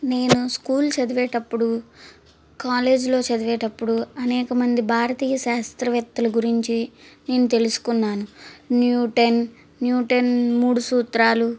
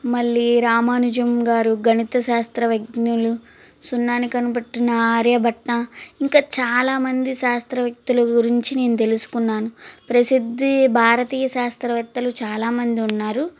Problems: constant background noise